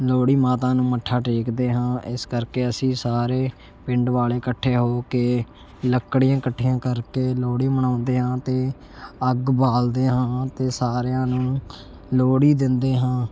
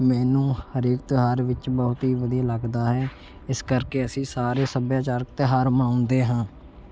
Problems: none marked